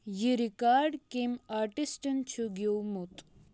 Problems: none marked